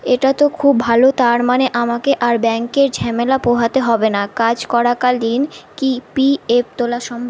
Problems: constant background noise